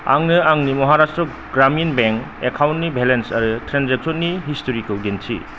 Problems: constant background noise, low volume